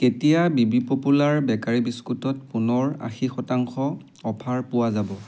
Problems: background sounds at intervals